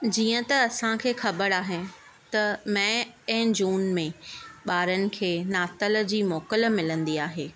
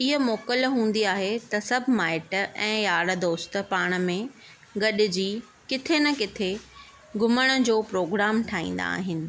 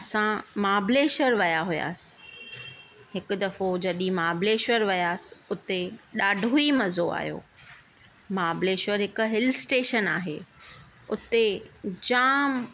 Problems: none marked